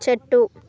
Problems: continuous background conversations